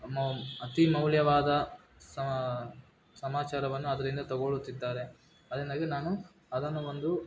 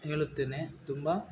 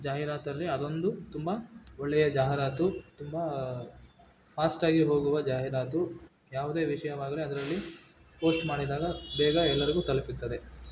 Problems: background sounds at intervals